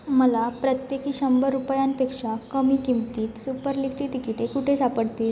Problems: constant background noise